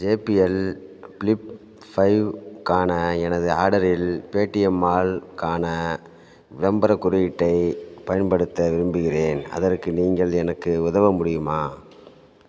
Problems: none marked